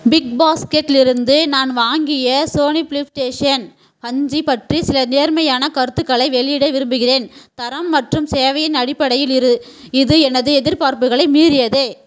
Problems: background sounds at intervals